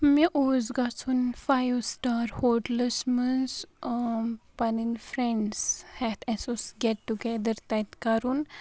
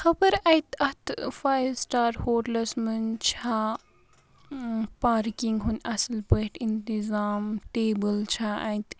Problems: background sounds at intervals